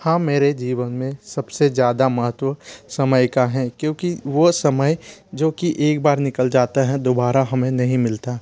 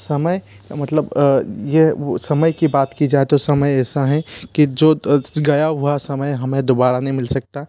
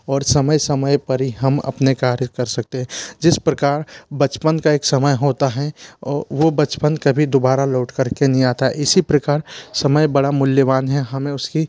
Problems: constant background noise